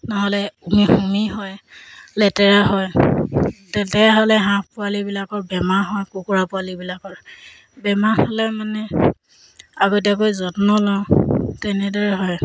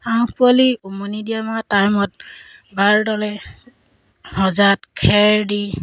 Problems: background sounds at intervals